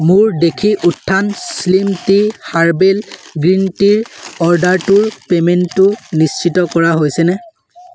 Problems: constant background noise